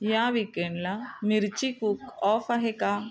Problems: background sounds at intervals